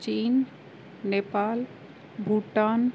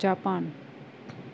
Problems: constant background noise